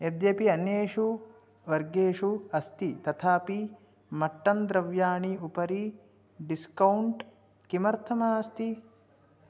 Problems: none marked